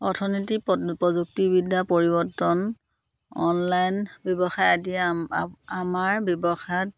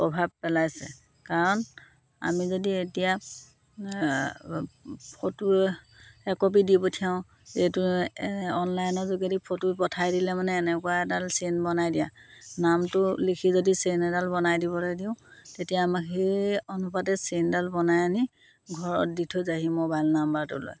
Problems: constant background noise